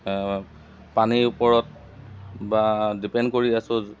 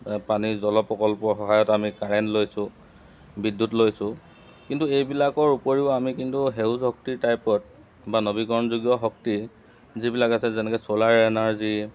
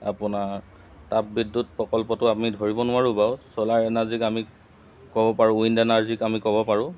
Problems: constant background noise